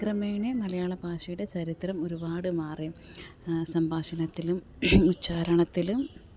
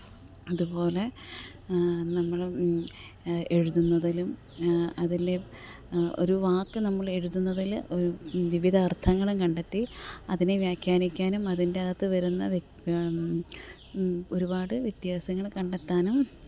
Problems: background conversations at intervals